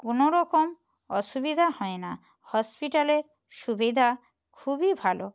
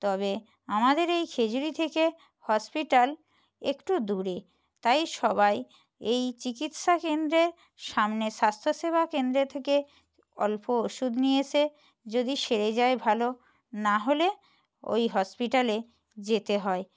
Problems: none marked